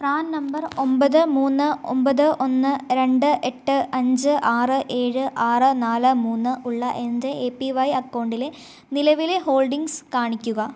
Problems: none marked